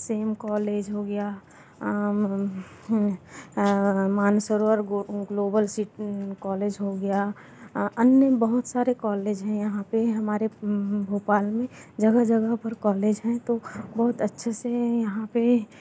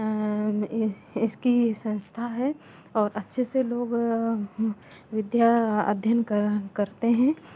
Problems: none marked